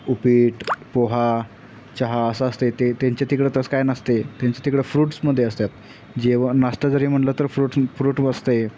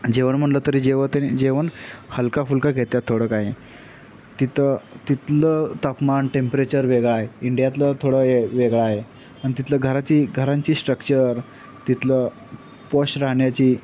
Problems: none marked